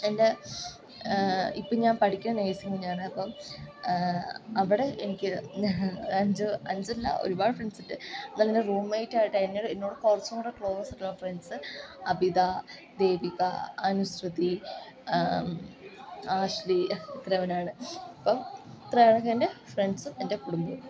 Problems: constant background noise